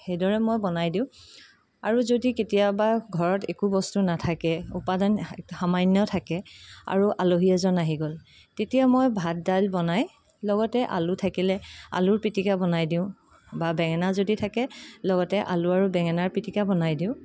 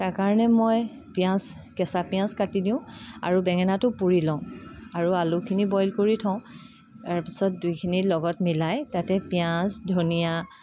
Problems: constant background noise, background conversations at intervals